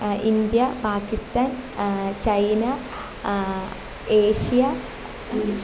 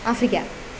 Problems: constant background noise